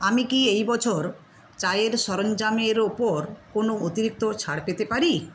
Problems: none marked